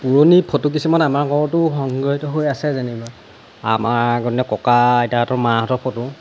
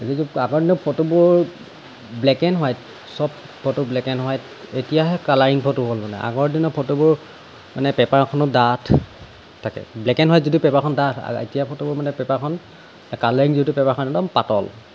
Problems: constant background noise